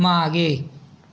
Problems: constant background noise